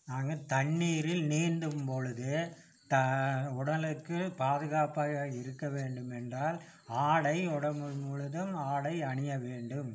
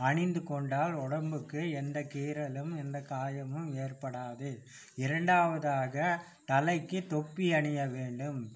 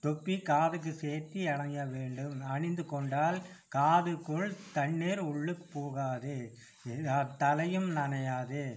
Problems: none marked